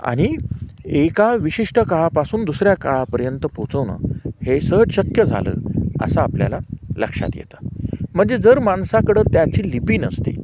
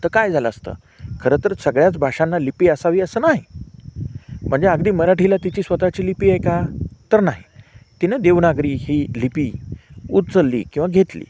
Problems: constant background noise, background conversations at intervals